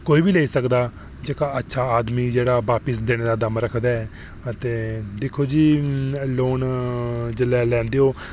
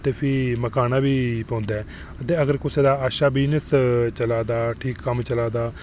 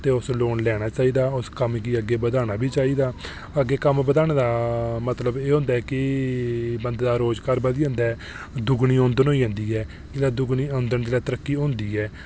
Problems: none marked